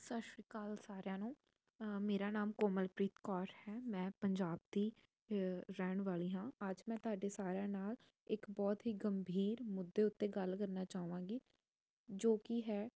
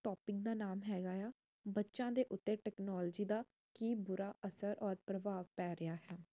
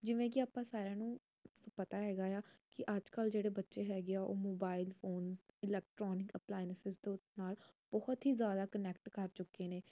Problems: none marked